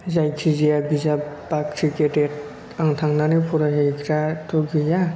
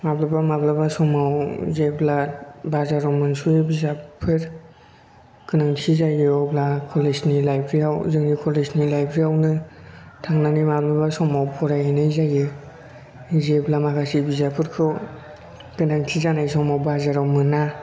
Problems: background sounds at intervals